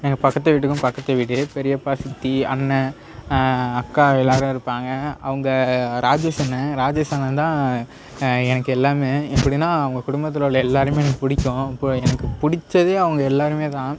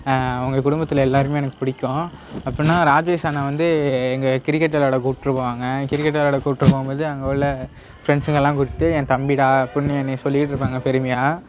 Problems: none marked